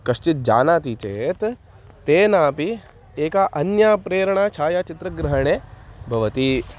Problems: constant background noise